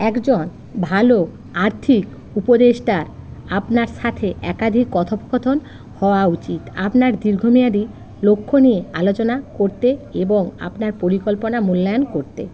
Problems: constant background noise, continuous background conversations